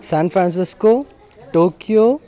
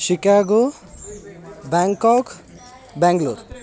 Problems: constant background noise, background conversations at intervals